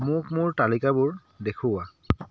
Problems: background sounds at intervals